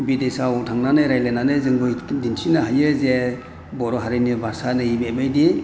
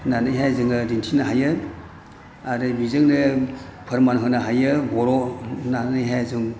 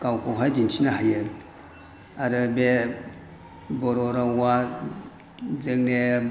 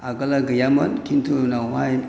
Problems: none marked